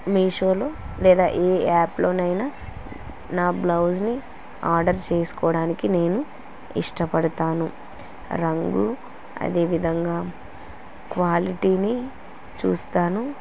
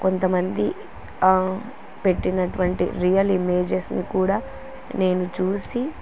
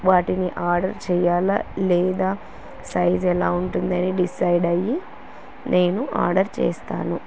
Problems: constant background noise